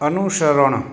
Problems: constant background noise